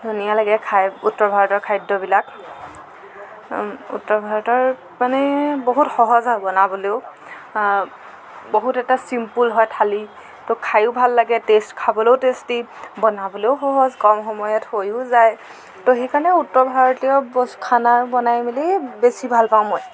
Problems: constant background noise, background conversations at intervals